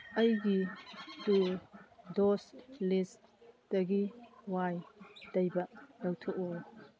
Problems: background sounds at intervals